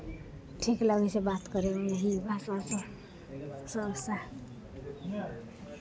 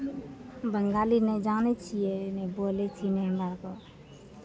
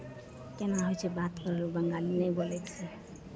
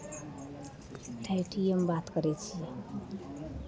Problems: background conversations at intervals